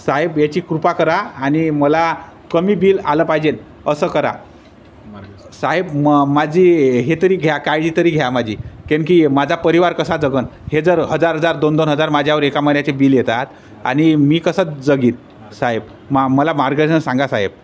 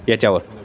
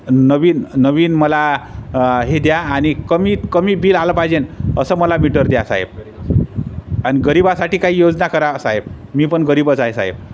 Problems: constant background noise, background conversations at intervals